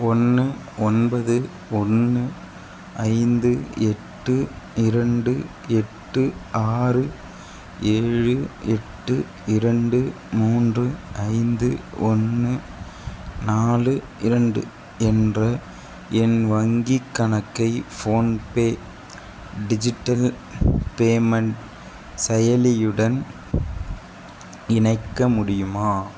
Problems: constant background noise